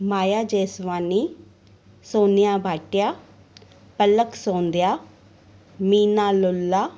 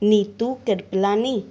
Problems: none marked